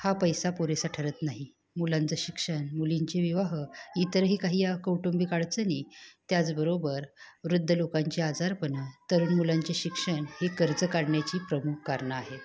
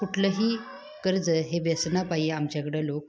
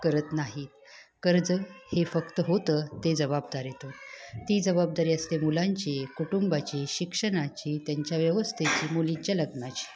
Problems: background conversations at intervals